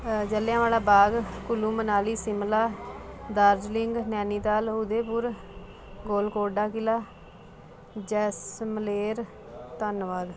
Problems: constant background noise